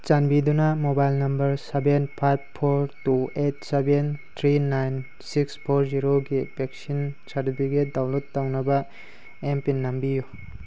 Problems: constant background noise